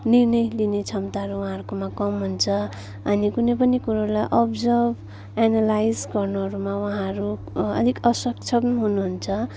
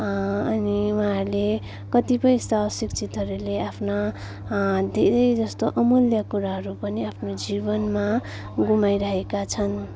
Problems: continuous background conversations